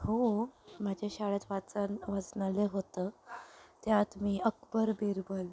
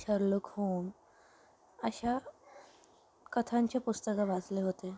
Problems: background sounds at intervals, background conversations at intervals